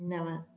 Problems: echo